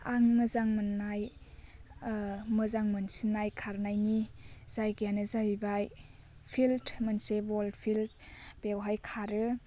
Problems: constant background noise